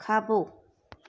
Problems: none marked